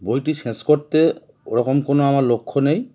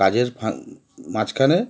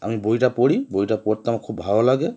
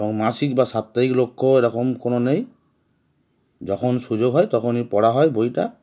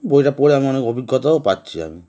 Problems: background sounds at intervals